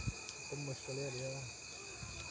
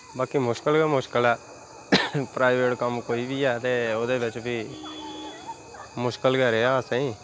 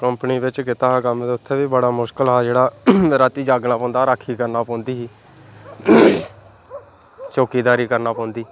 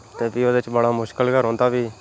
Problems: none marked